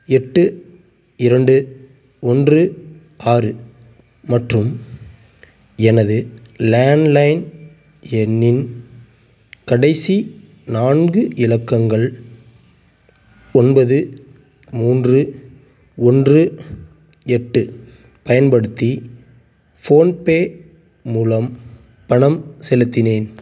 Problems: background sounds at intervals